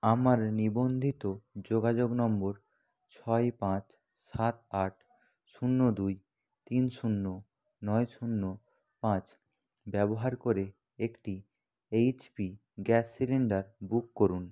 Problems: none marked